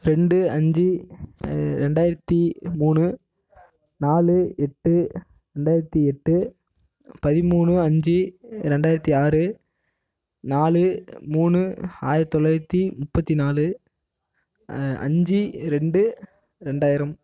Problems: none marked